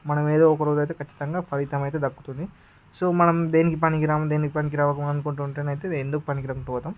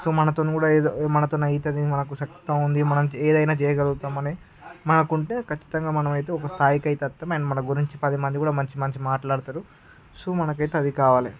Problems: background conversations at intervals